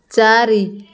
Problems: constant background noise